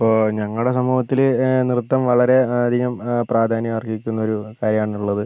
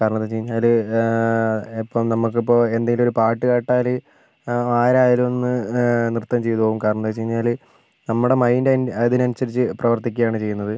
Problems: constant background noise